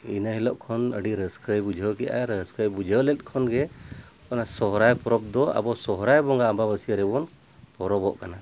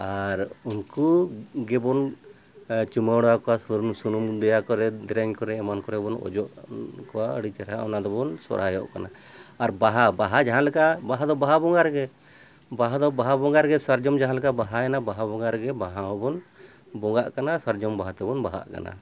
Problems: none marked